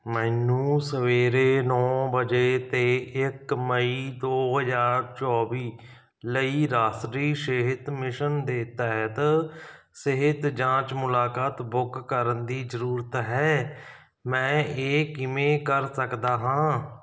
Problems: background sounds at intervals